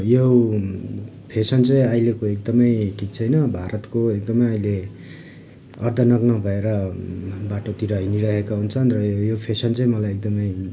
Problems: background conversations at intervals